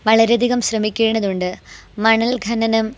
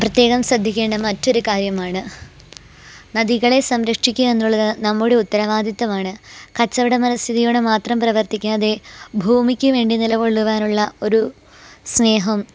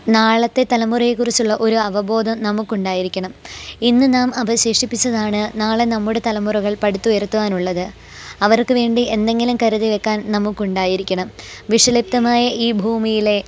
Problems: background sounds at intervals